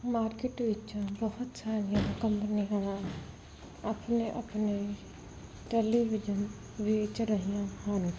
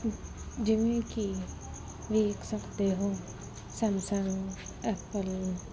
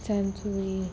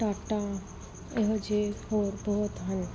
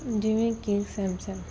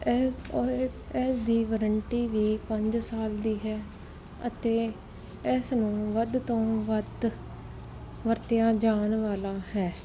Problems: background sounds at intervals